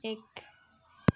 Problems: background sounds at intervals